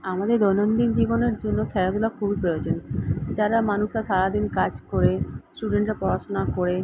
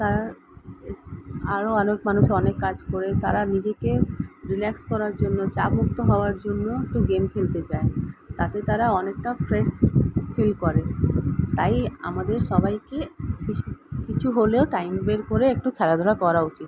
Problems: background sounds at intervals